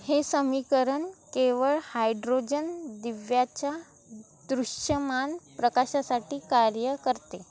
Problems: none marked